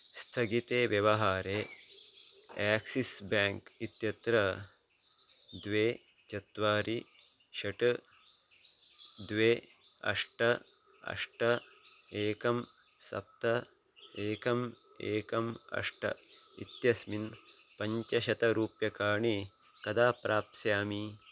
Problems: none marked